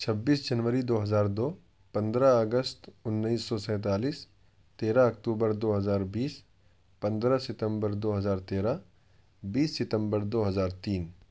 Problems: none marked